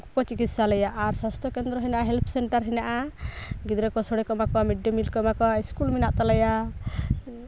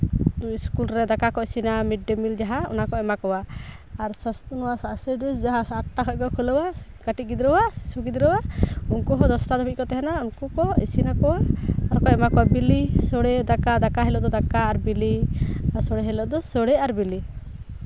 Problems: background sounds at intervals